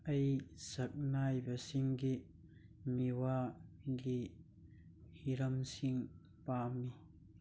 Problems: none marked